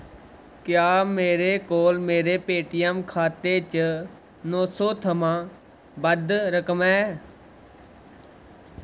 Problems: none marked